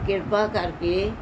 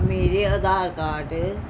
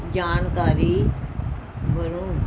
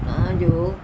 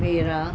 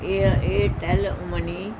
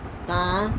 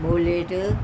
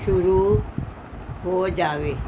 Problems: background conversations at intervals